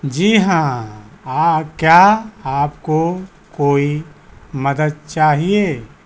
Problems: none marked